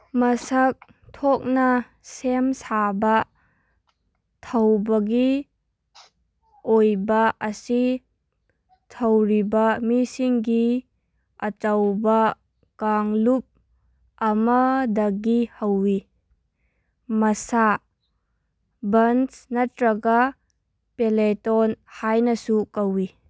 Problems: background sounds at intervals